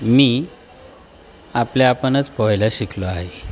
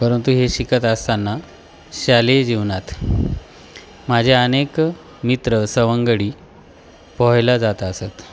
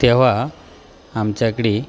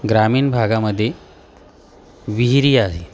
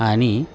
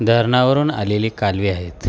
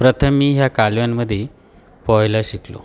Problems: constant background noise, continuous background conversations